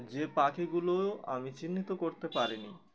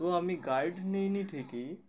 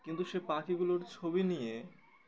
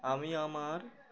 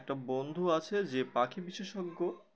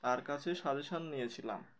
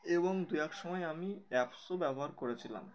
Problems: background sounds at intervals, continuous background conversations